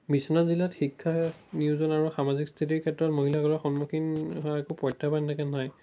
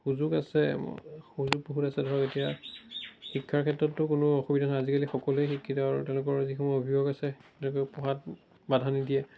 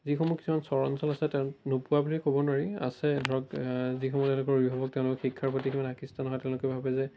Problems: background sounds at intervals